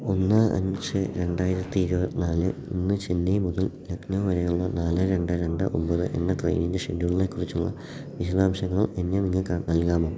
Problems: background sounds at intervals, low volume